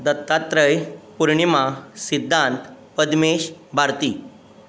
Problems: constant background noise